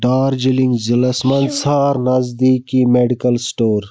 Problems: background sounds at intervals